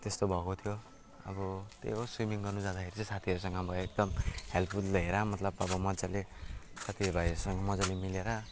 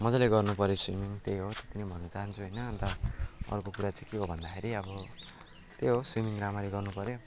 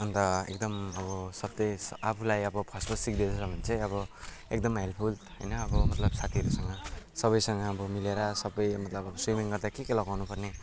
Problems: constant background noise